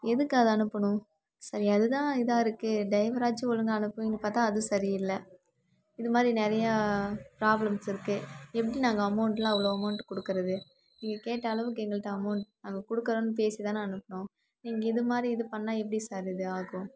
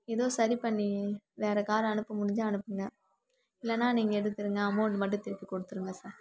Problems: constant background noise